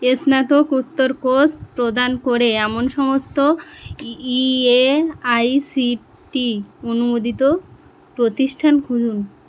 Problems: constant background noise